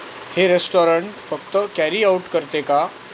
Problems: constant background noise